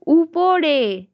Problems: none marked